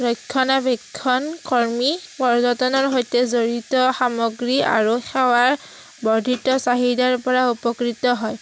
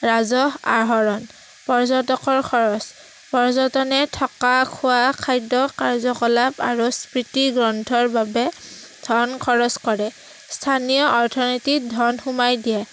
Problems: constant background noise